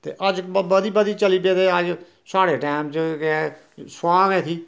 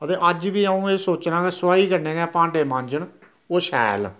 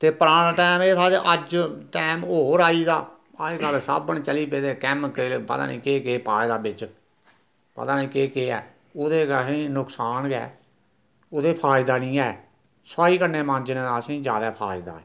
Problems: none marked